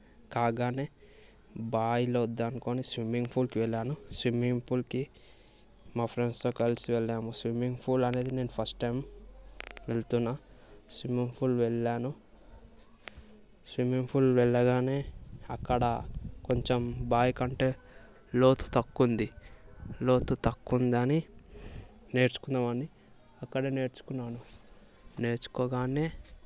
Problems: none marked